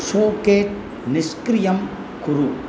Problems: none marked